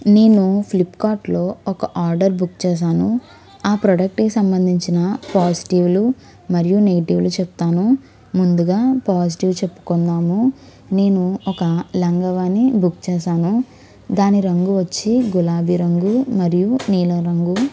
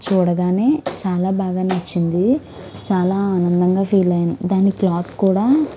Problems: background sounds at intervals, background conversations at intervals